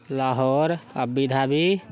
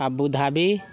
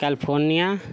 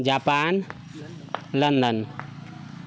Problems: continuous background conversations